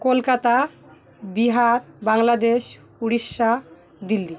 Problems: constant background noise